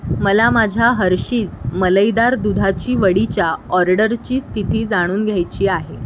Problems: constant background noise